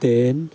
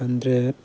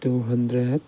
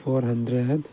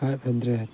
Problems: background sounds at intervals